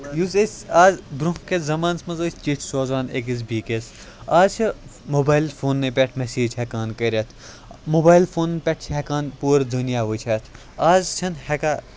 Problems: background sounds at intervals